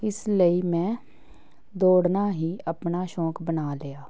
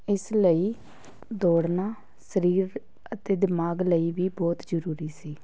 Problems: continuous background conversations